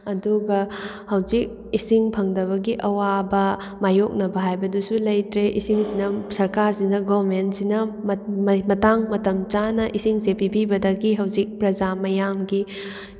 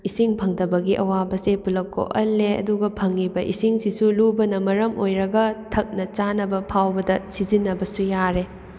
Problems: none marked